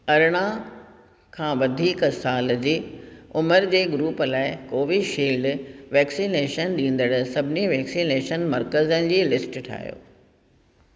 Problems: echo